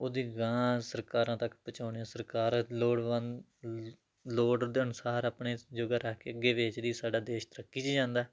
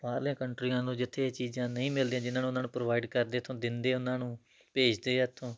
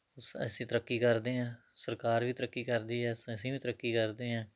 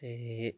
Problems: none marked